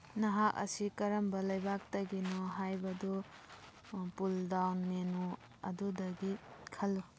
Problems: background conversations at intervals